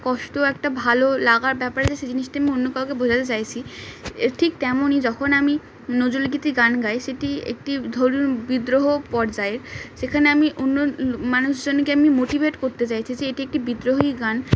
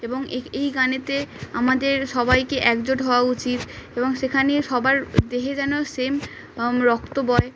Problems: constant background noise